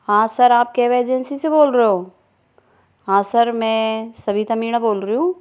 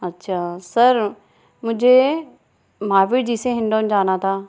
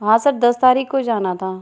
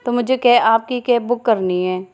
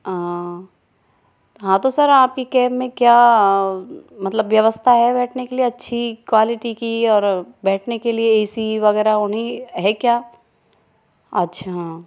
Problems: none marked